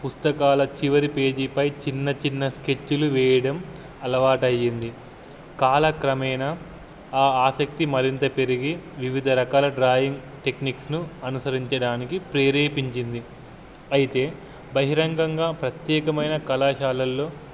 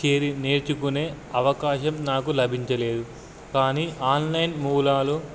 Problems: none marked